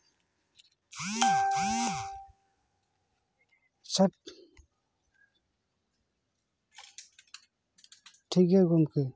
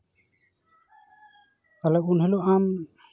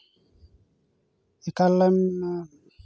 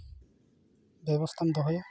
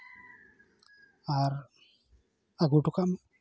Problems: none marked